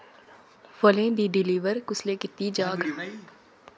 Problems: background sounds at intervals, background conversations at intervals